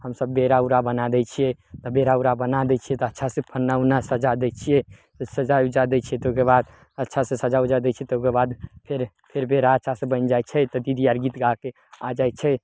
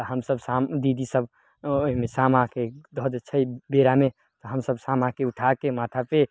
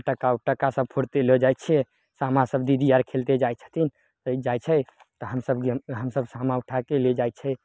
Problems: none marked